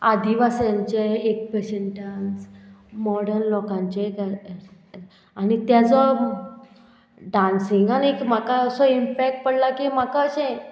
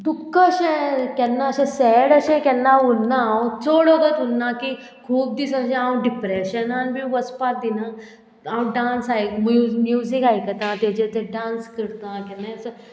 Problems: none marked